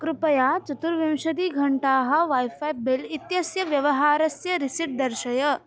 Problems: background conversations at intervals